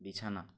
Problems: none marked